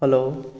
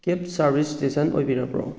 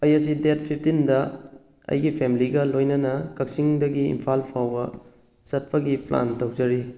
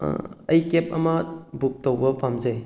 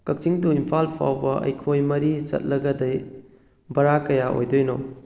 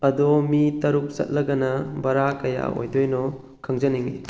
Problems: none marked